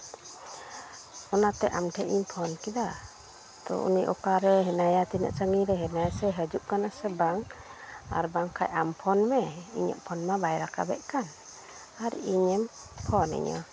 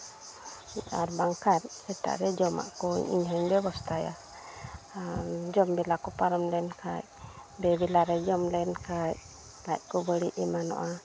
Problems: constant background noise